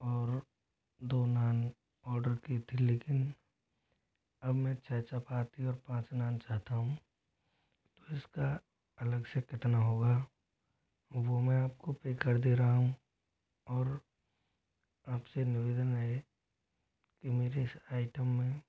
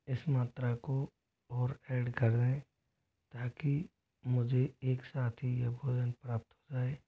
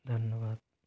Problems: constant background noise, low volume